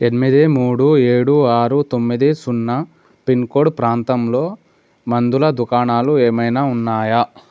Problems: none marked